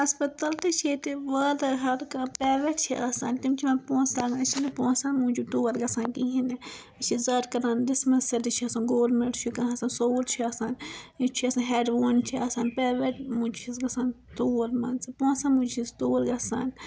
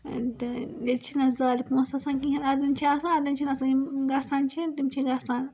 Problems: background sounds at intervals